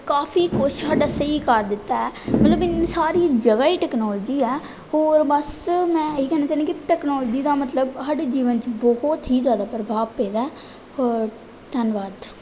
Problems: background sounds at intervals